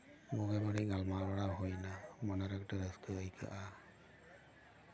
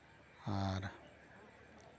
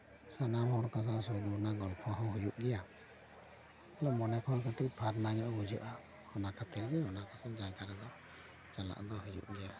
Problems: background conversations at intervals